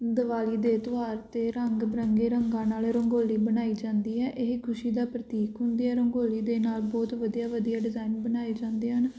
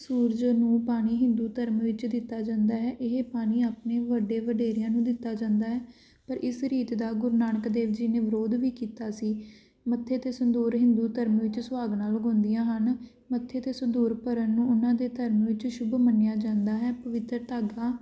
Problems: none marked